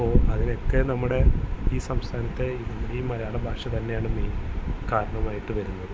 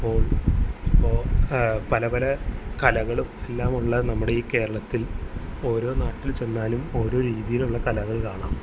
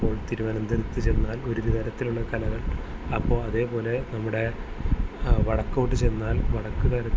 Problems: constant background noise